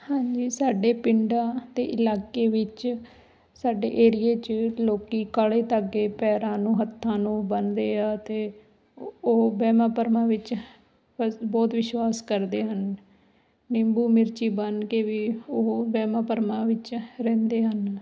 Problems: background sounds at intervals